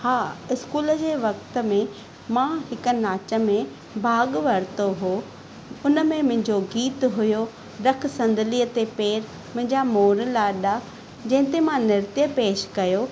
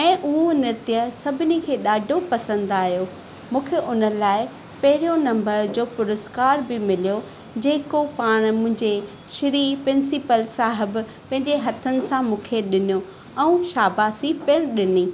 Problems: none marked